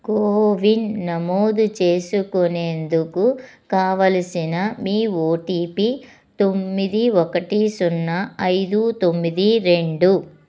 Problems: none marked